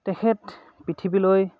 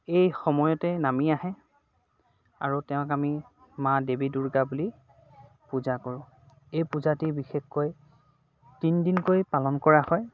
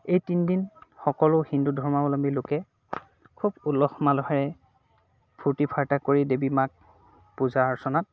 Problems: constant background noise, background conversations at intervals